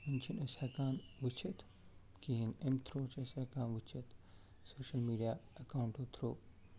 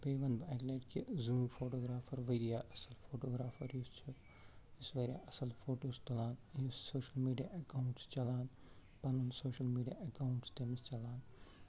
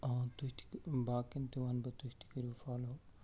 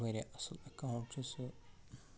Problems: constant background noise, low volume